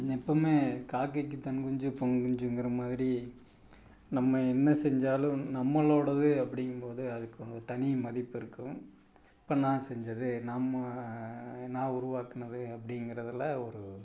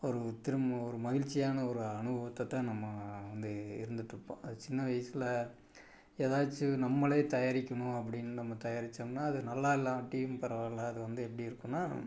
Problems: background sounds at intervals